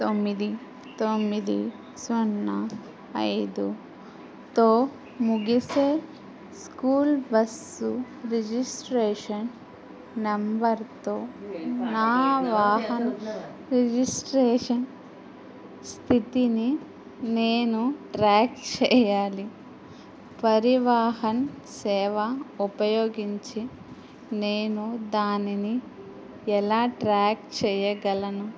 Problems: background conversations at intervals